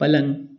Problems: background sounds at intervals